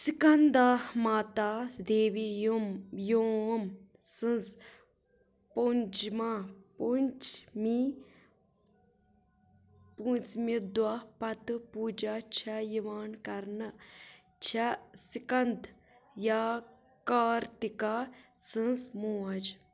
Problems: background sounds at intervals